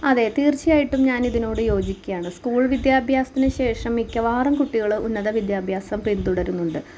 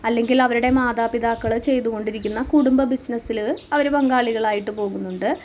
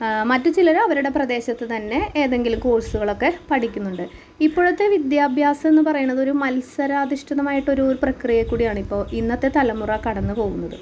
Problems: constant background noise